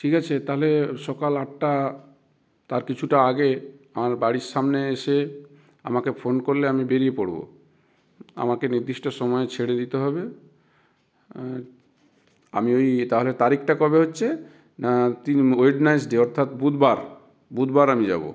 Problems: background sounds at intervals